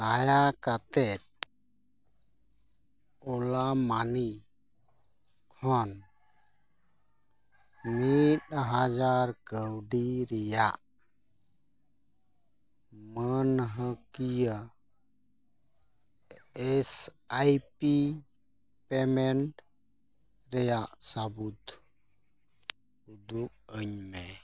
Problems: none marked